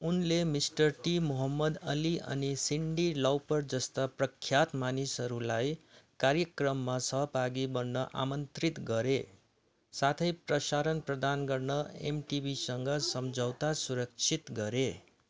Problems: constant background noise